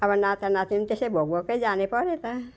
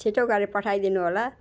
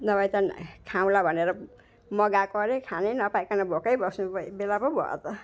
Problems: none marked